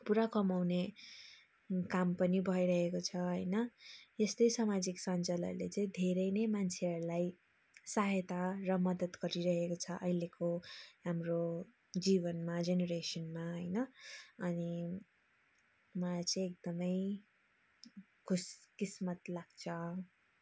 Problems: none marked